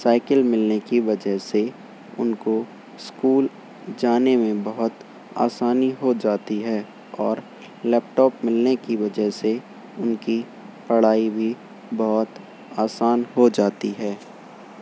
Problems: constant background noise